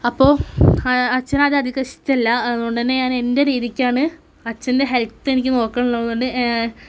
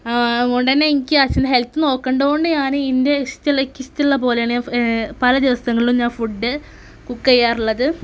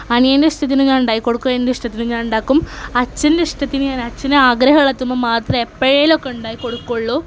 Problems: background sounds at intervals